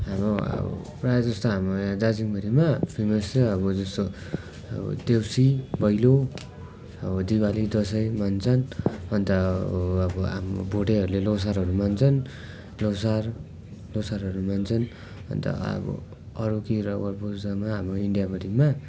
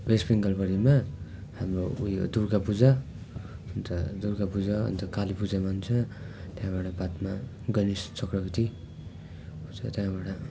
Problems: background sounds at intervals